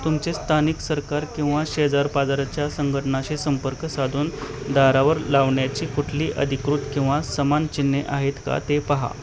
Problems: none marked